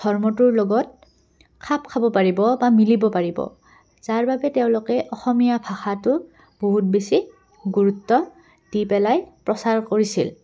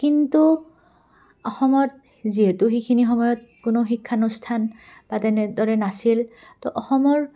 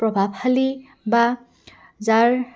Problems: background sounds at intervals, background conversations at intervals